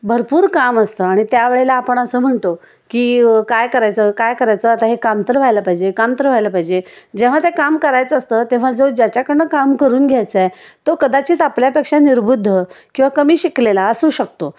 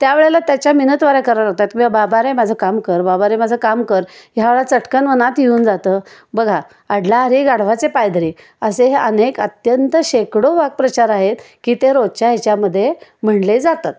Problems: none marked